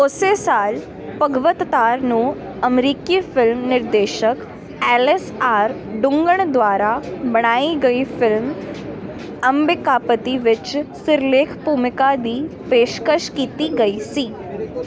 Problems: continuous background conversations